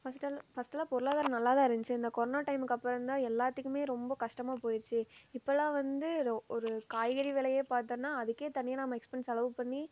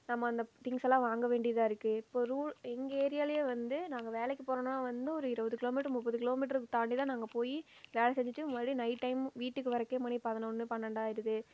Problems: low volume